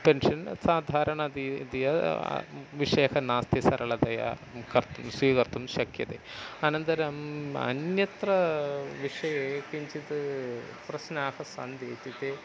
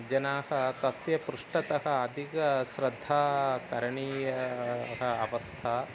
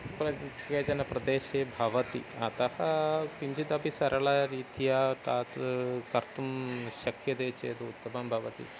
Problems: constant background noise